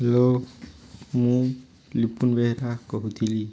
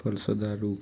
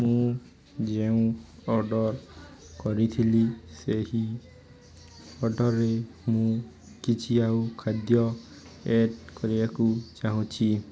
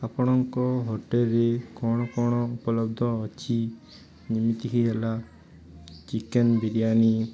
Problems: continuous background conversations